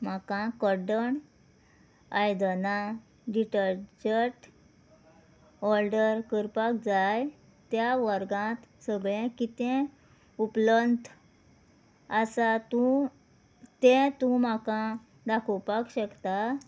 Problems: none marked